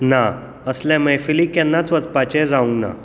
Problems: background sounds at intervals